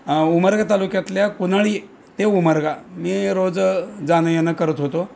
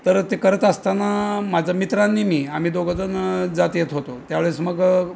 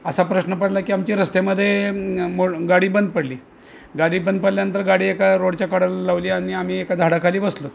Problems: constant background noise, background conversations at intervals